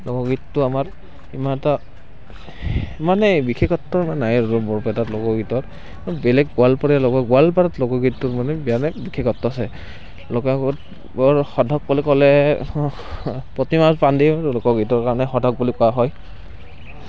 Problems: constant background noise